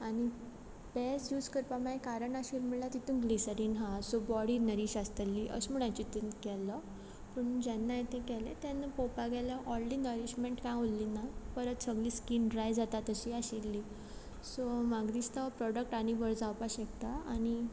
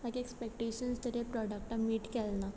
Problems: none marked